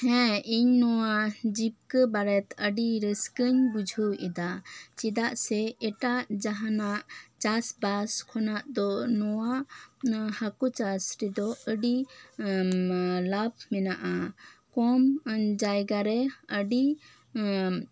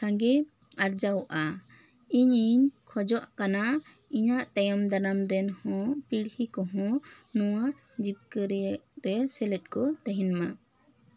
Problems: none marked